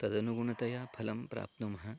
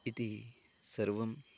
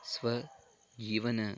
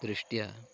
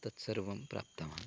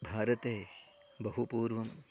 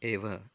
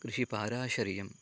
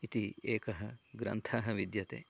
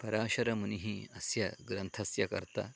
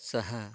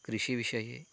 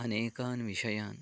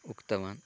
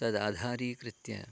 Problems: none marked